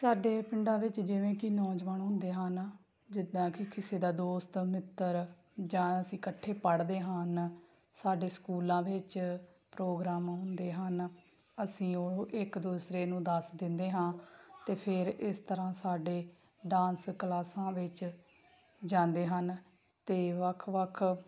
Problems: background sounds at intervals